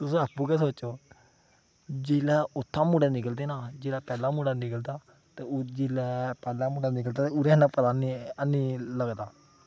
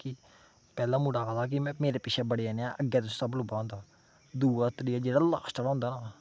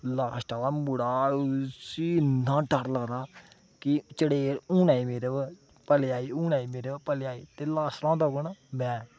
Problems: none marked